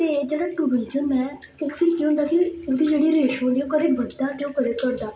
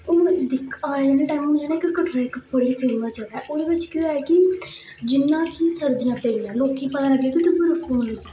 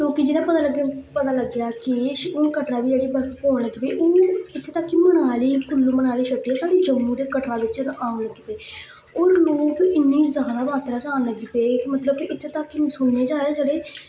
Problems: background sounds at intervals